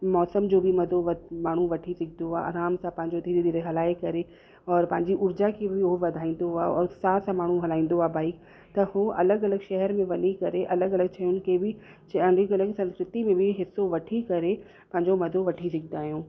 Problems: constant background noise